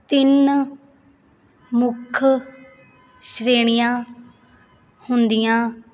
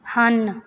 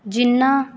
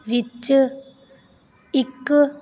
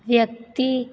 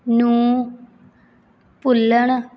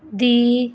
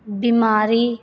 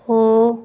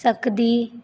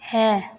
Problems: constant background noise